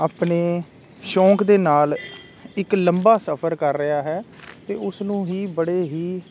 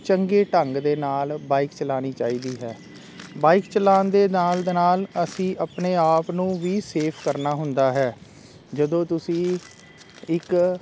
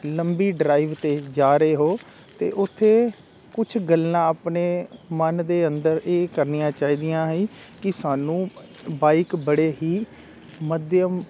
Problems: constant background noise